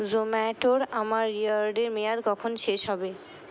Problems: constant background noise, continuous background conversations